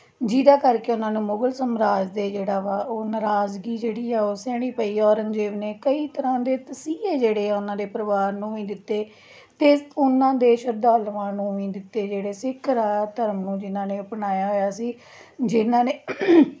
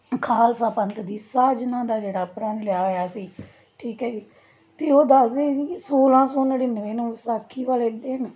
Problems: background sounds at intervals